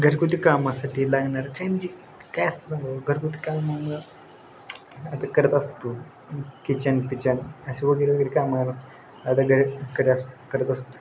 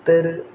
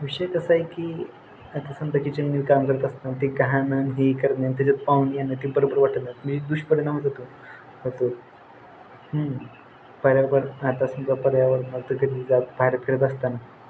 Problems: none marked